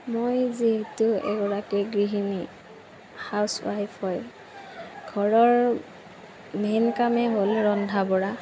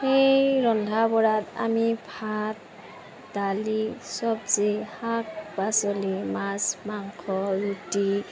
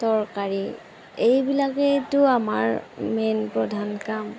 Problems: constant background noise